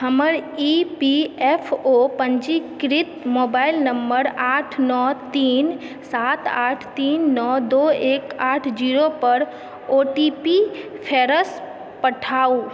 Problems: background conversations at intervals